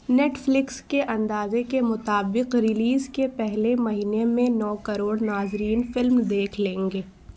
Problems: constant background noise